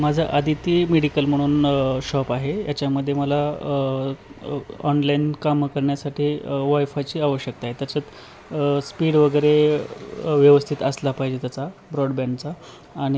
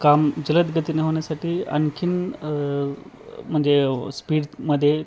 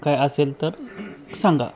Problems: none marked